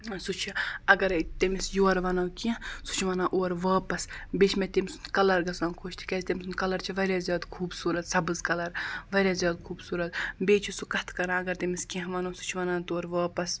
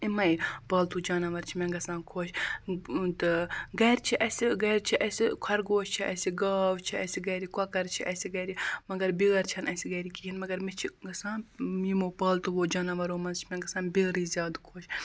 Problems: constant background noise